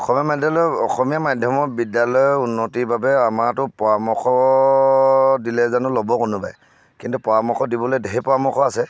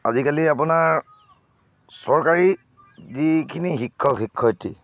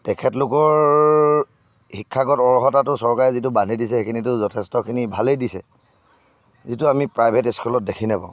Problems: none marked